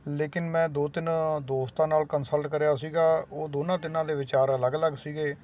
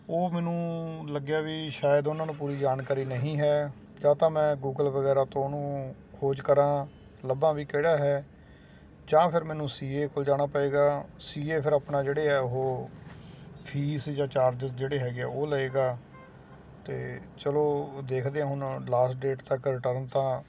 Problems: constant background noise